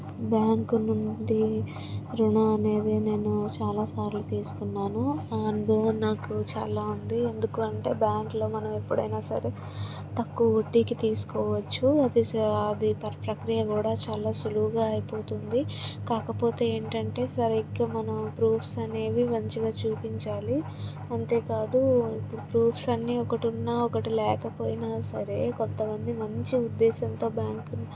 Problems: constant background noise, background conversations at intervals